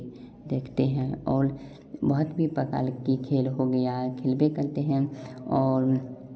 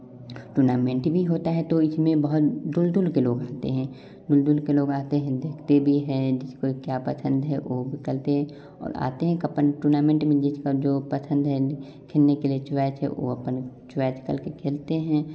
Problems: constant background noise